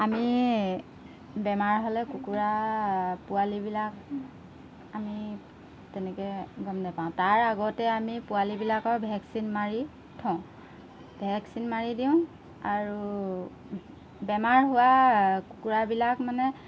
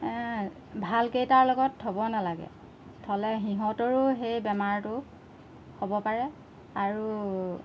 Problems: background sounds at intervals